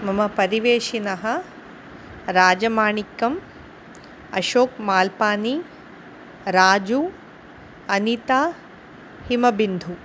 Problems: constant background noise